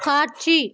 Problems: background conversations at intervals